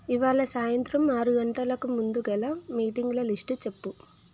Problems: none marked